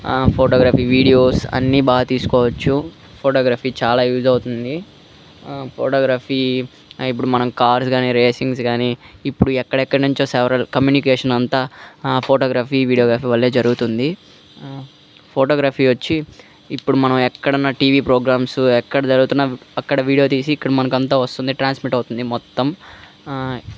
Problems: none marked